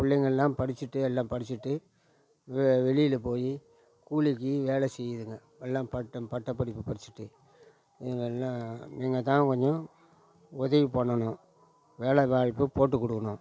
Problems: background conversations at intervals